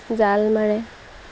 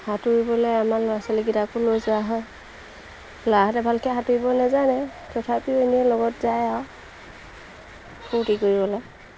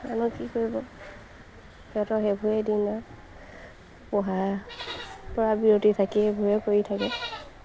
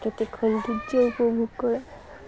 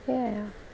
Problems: constant background noise, background conversations at intervals